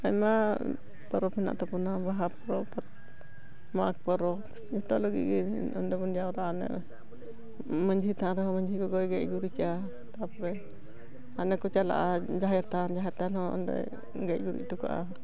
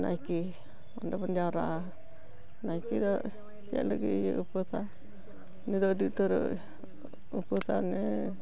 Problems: continuous background conversations, low volume